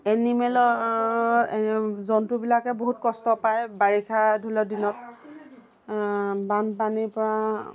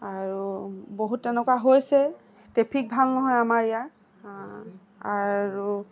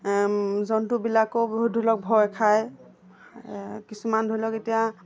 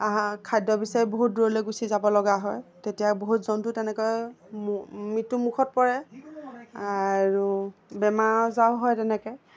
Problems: constant background noise, background conversations at intervals